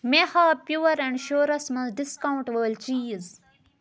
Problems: none marked